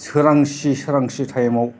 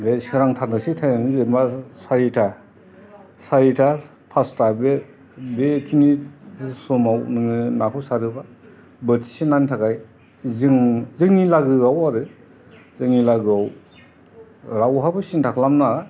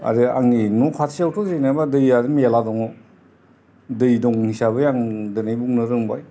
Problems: background sounds at intervals, background conversations at intervals